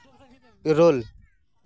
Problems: background conversations at intervals